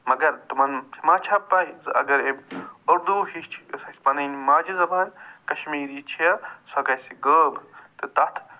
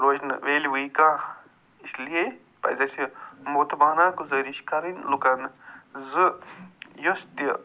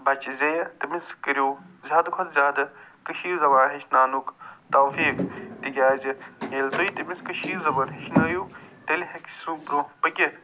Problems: none marked